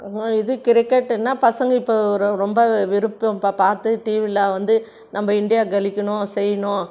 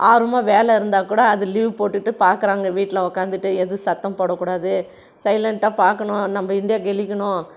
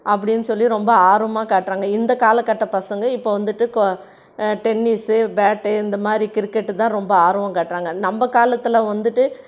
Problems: none marked